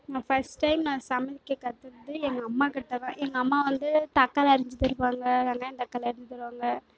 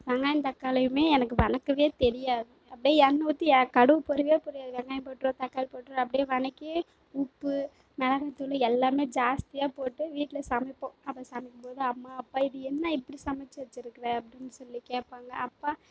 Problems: background sounds at intervals